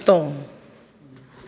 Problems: constant background noise, echo